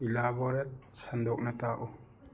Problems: background sounds at intervals